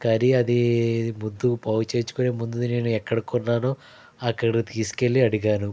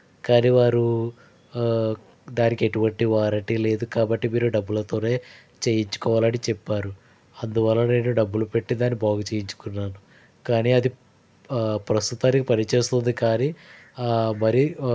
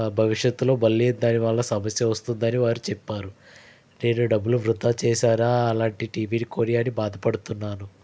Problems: background sounds at intervals